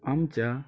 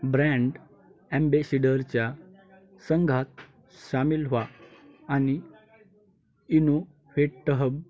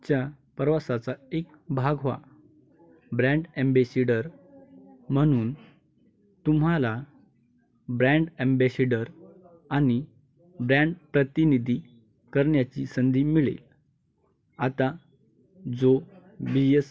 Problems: background sounds at intervals, continuous background conversations